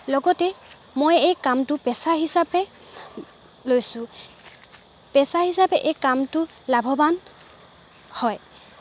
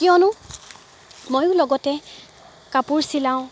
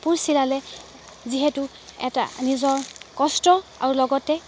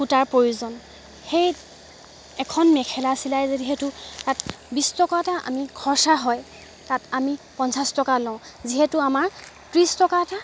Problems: background sounds at intervals